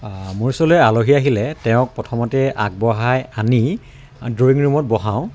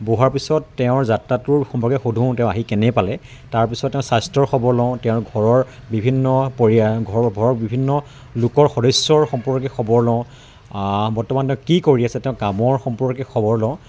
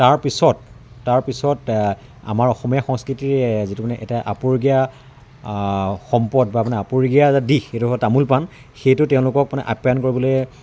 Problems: none marked